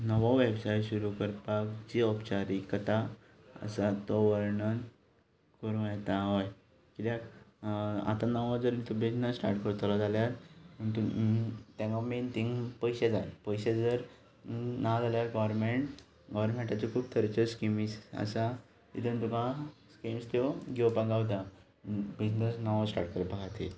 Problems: none marked